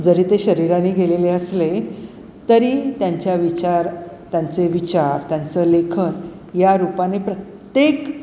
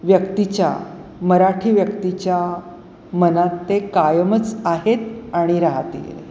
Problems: constant background noise